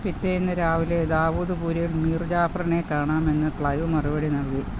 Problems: none marked